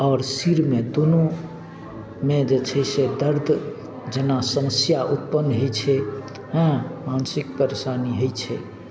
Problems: none marked